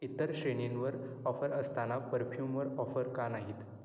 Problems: none marked